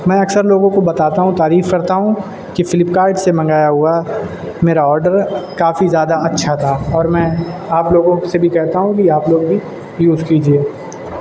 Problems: constant background noise